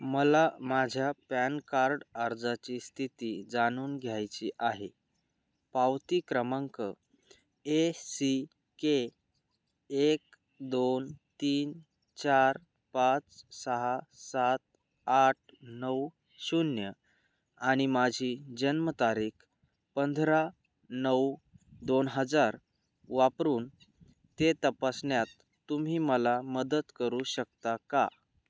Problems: background sounds at intervals